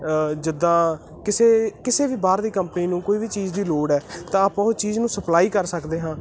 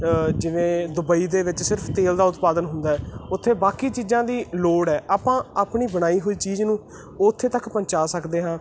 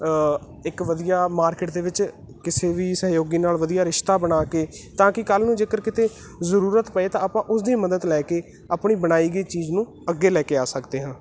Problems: none marked